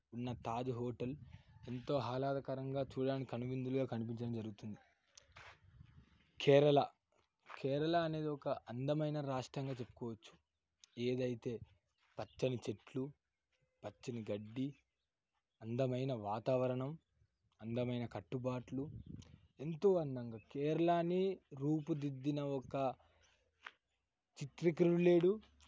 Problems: none marked